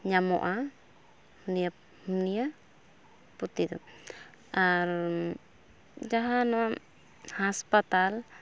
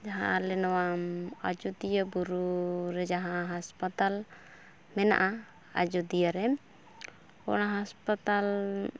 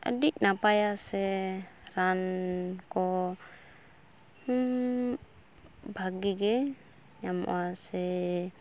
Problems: background sounds at intervals